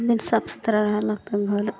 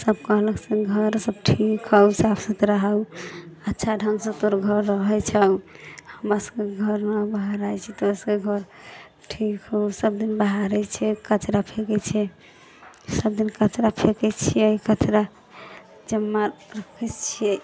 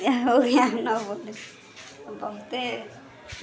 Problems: background conversations at intervals